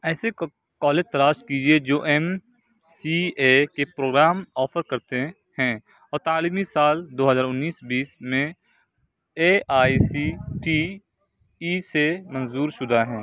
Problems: none marked